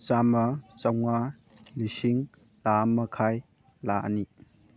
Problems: background sounds at intervals, background conversations at intervals